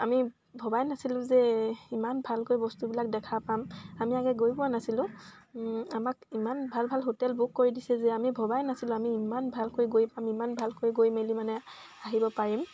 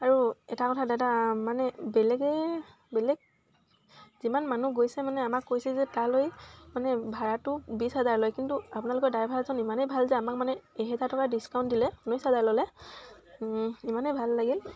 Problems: constant background noise